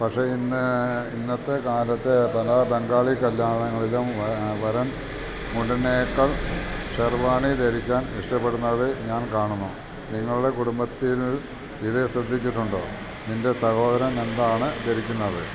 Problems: constant background noise